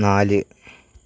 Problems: background sounds at intervals